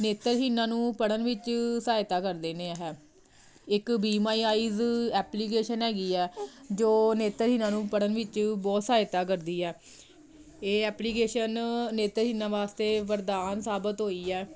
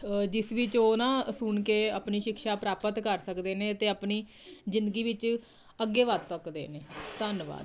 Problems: none marked